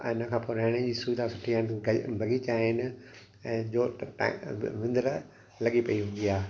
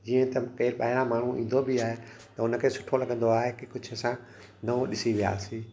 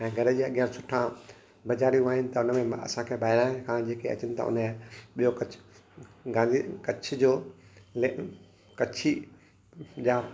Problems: constant background noise, echo